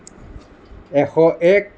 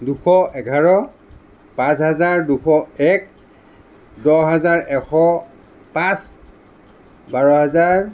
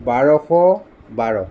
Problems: none marked